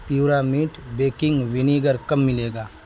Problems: constant background noise